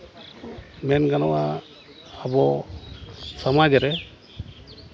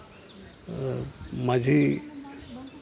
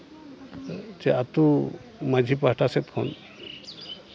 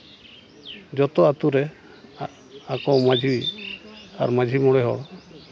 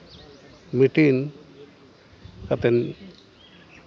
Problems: background conversations at intervals